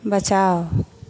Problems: none marked